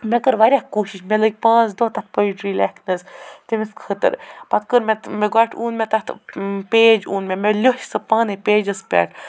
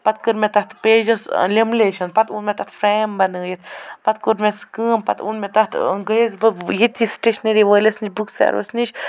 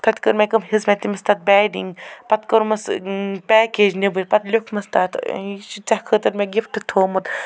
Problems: none marked